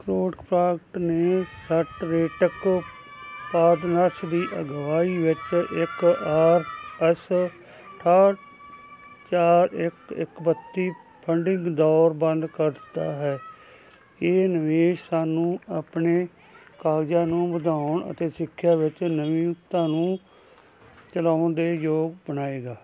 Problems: constant background noise